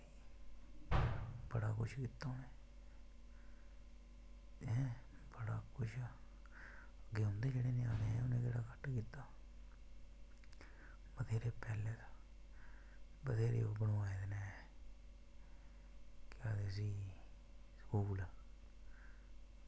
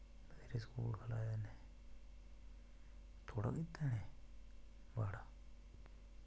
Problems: constant background noise